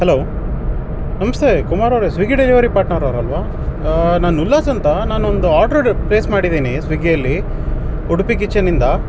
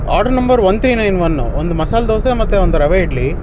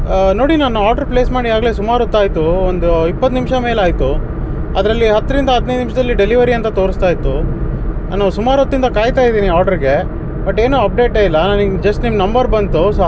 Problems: constant background noise